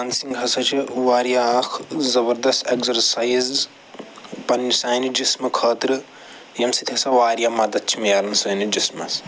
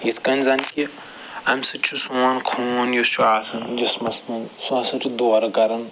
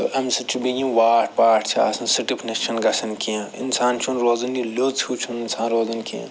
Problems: none marked